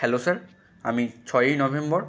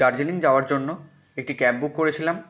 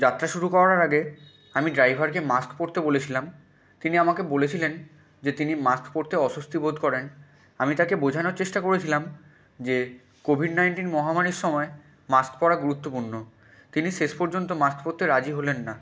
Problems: background sounds at intervals